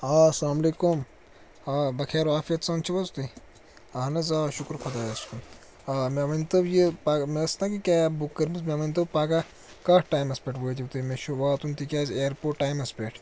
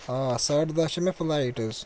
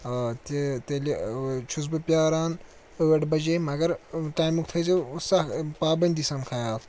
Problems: constant background noise